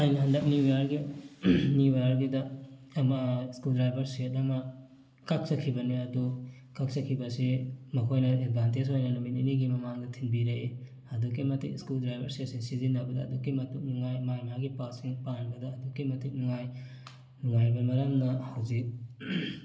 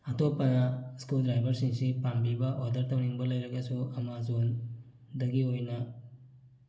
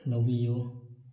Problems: background sounds at intervals